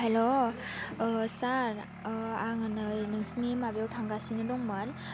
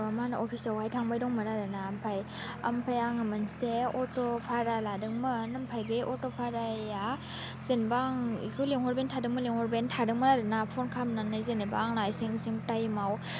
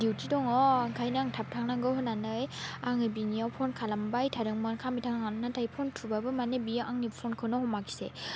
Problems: constant background noise